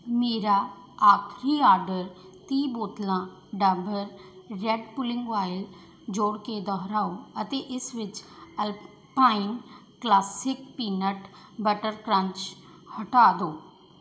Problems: constant background noise